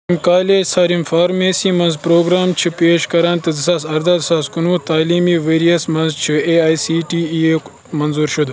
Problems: constant background noise